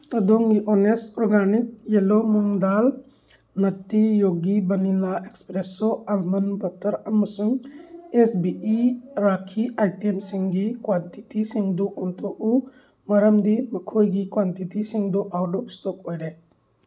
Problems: background sounds at intervals